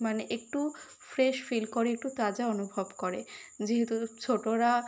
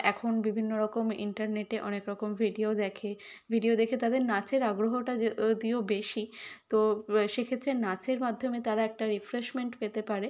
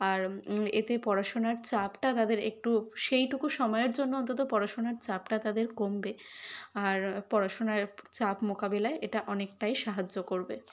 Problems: none marked